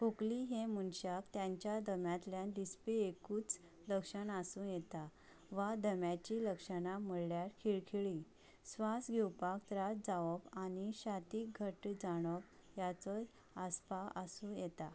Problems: none marked